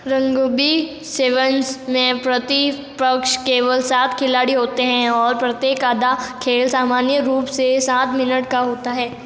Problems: echo